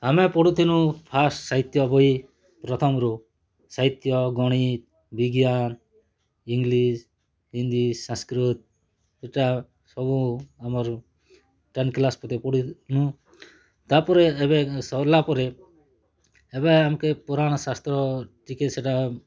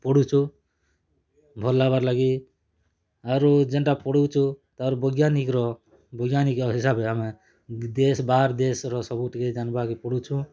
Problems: none marked